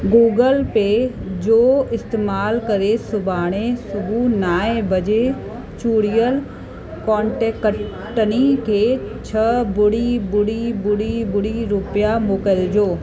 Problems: constant background noise, echo